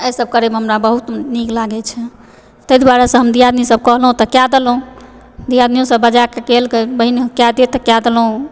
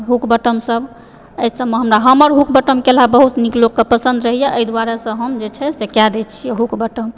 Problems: background sounds at intervals